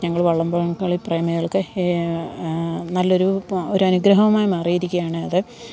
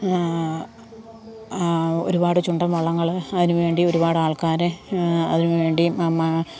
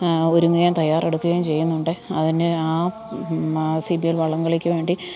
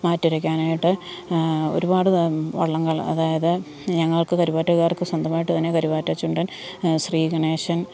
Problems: none marked